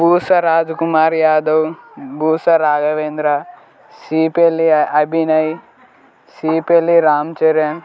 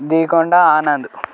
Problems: constant background noise